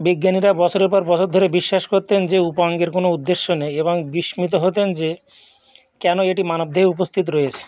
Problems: continuous background conversations